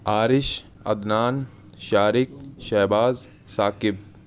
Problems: constant background noise